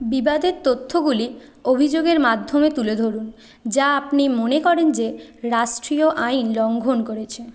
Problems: background sounds at intervals, continuous background conversations